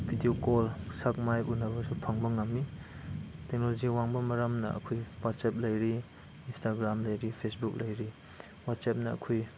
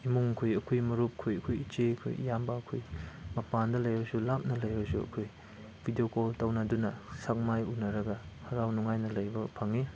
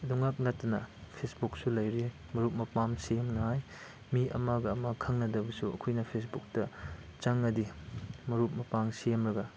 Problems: none marked